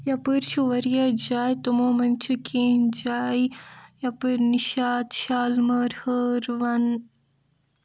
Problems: low volume